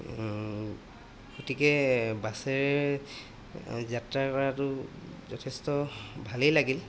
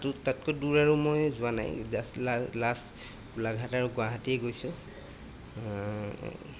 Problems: constant background noise